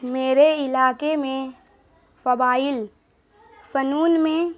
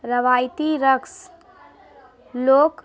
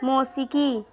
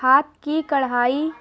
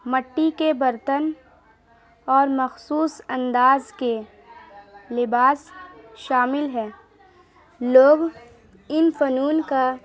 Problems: constant background noise